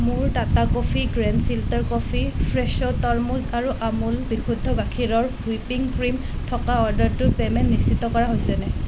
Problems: constant background noise